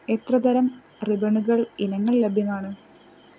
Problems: none marked